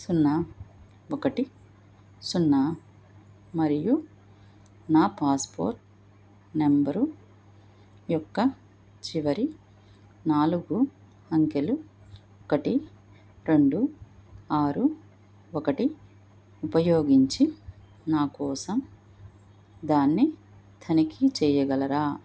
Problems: none marked